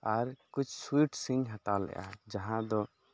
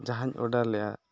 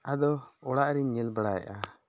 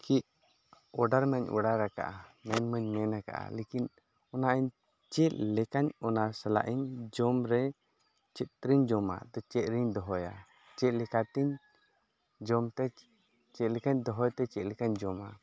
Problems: background sounds at intervals